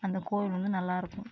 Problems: none marked